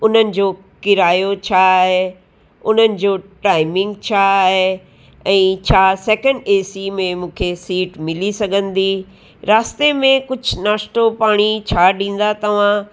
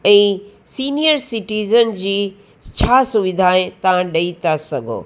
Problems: background sounds at intervals, echo